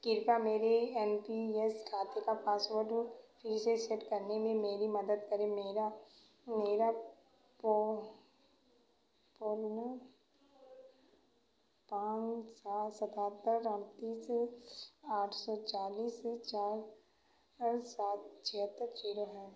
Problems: background sounds at intervals, echo